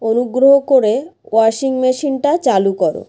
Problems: none marked